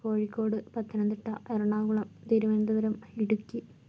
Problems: low volume